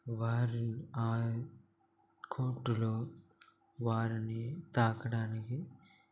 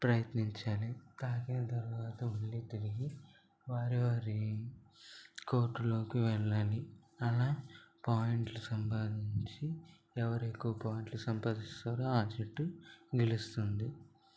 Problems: constant background noise, low volume